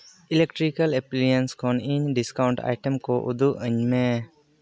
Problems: none marked